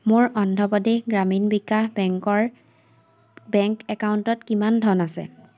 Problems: constant background noise